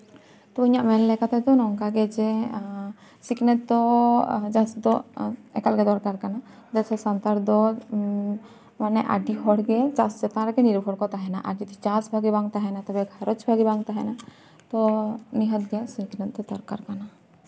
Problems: none marked